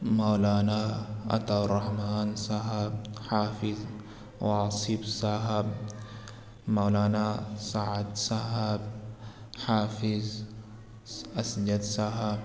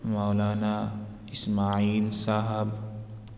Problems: constant background noise, echo